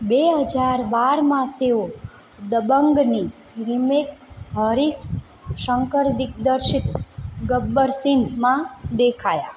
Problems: constant background noise